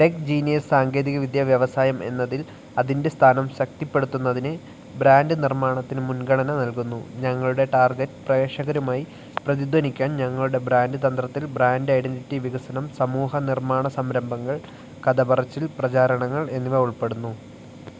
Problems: none marked